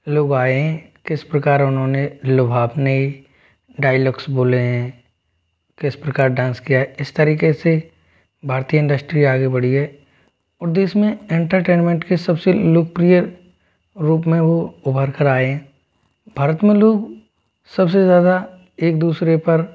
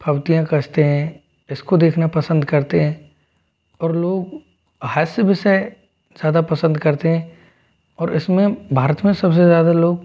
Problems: background sounds at intervals